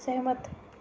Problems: low volume